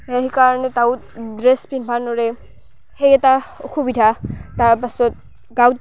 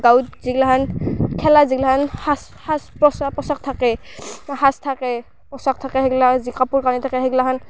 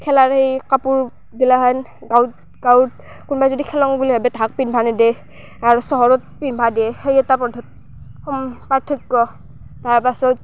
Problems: constant background noise, background conversations at intervals